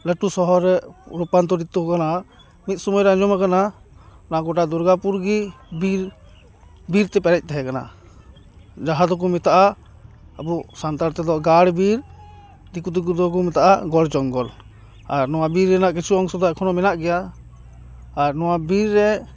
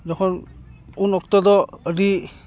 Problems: background conversations at intervals